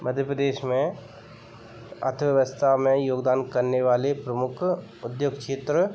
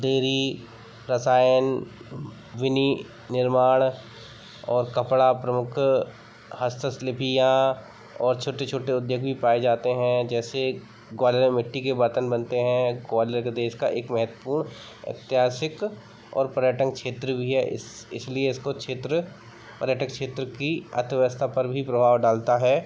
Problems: none marked